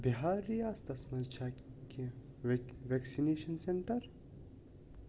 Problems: constant background noise